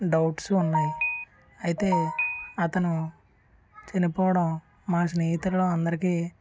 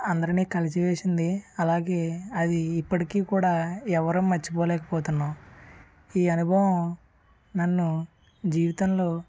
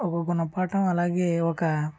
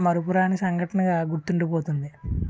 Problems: background sounds at intervals